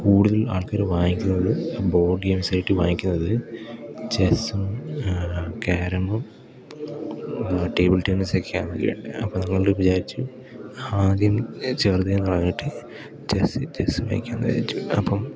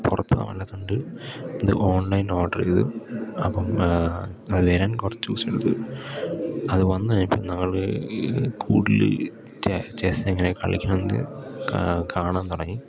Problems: background sounds at intervals